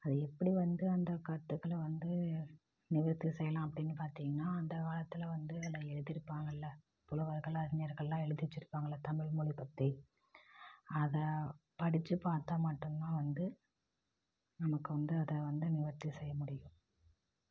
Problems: low volume